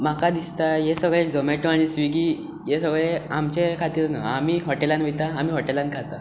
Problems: none marked